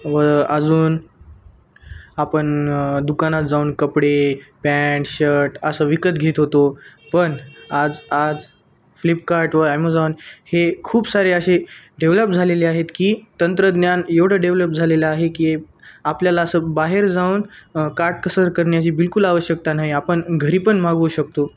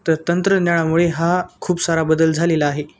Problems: none marked